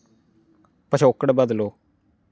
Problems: none marked